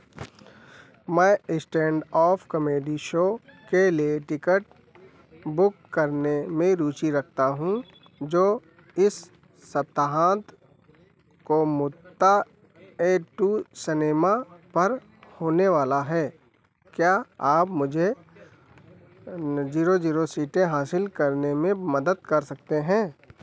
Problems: constant background noise